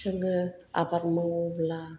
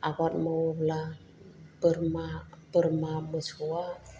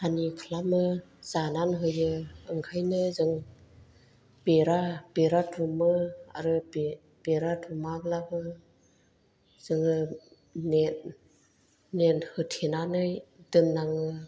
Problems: low volume